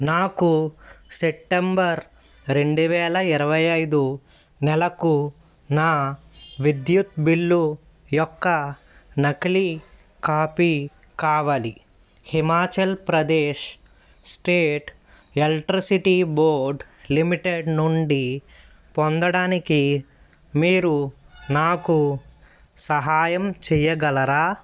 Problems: background sounds at intervals